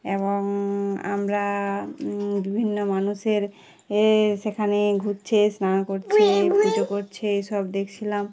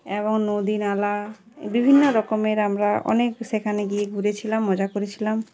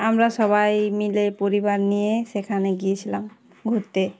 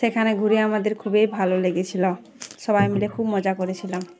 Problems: none marked